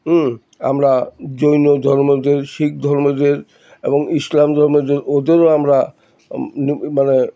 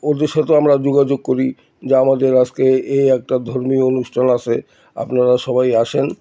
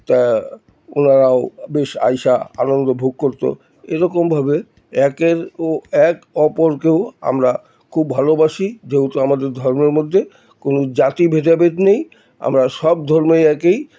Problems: constant background noise, background conversations at intervals